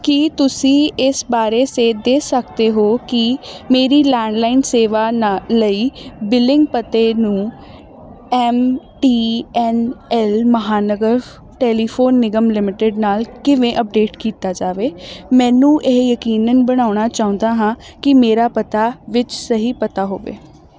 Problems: none marked